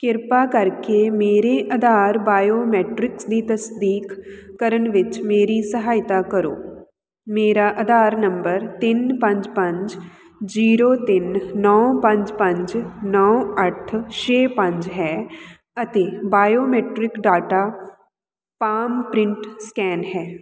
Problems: none marked